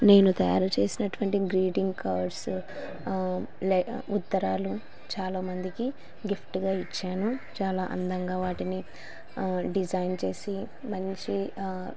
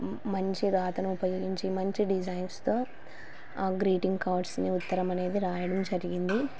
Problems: constant background noise